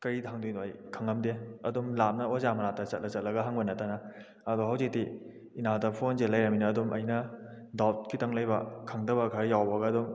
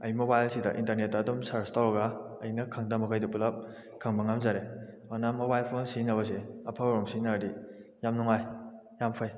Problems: background sounds at intervals